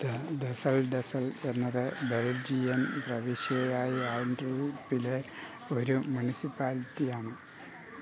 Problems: constant background noise, low volume